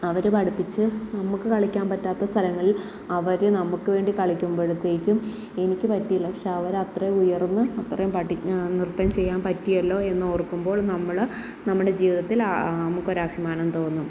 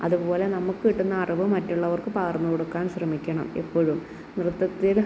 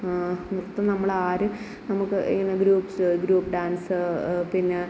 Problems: none marked